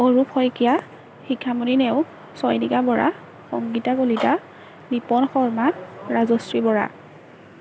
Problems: background sounds at intervals